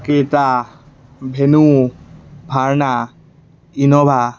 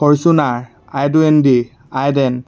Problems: none marked